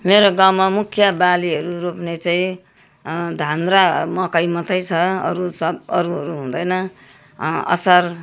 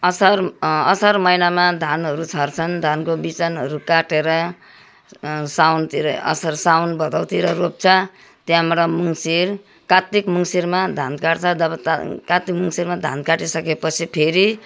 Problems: none marked